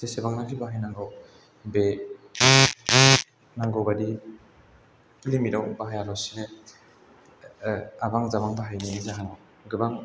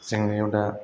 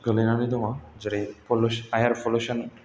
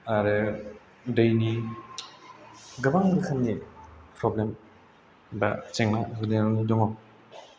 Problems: background sounds at intervals